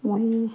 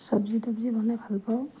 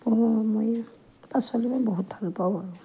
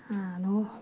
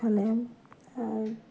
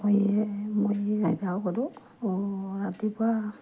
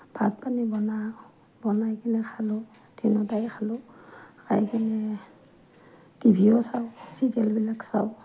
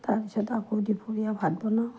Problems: none marked